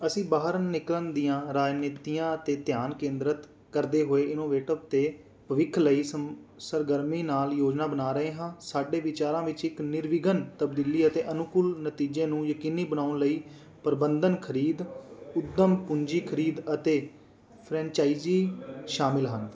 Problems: background sounds at intervals